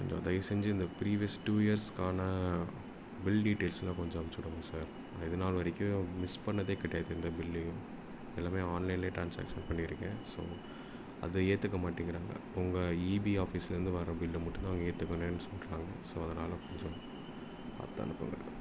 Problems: background sounds at intervals